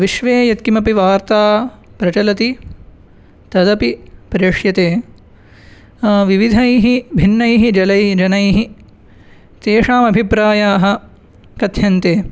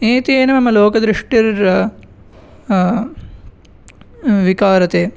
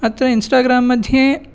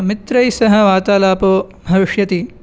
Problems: none marked